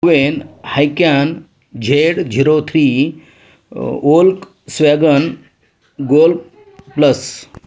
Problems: none marked